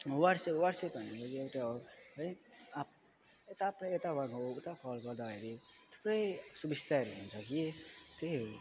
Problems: none marked